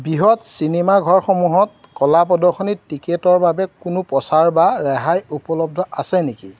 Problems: background sounds at intervals